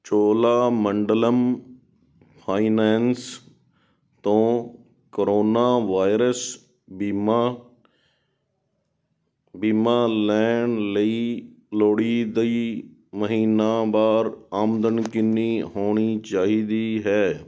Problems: background sounds at intervals